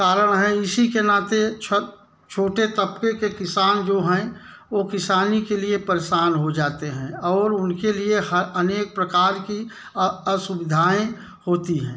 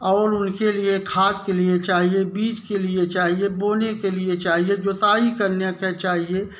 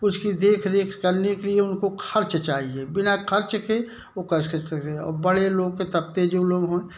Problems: background sounds at intervals